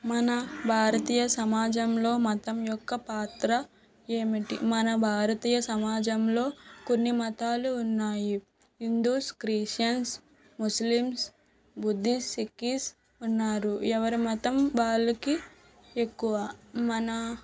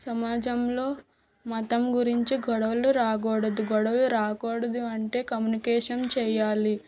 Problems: background sounds at intervals